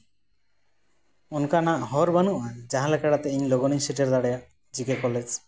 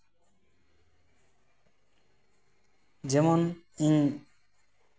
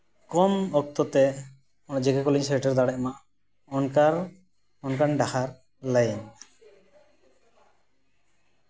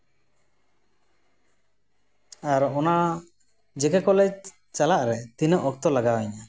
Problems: constant background noise